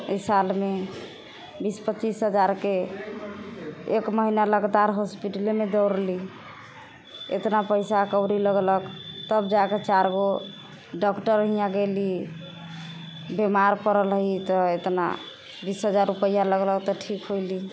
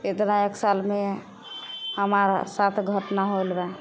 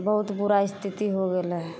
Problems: none marked